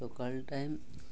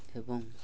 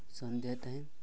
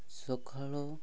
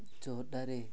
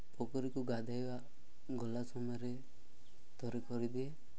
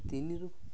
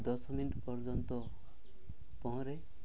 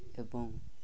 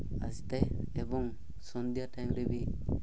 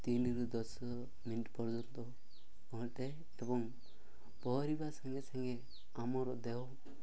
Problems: background sounds at intervals